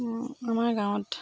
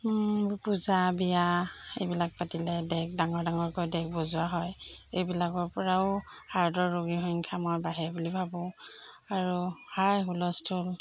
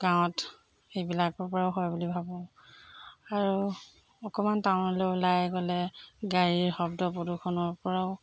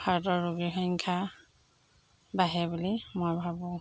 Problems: constant background noise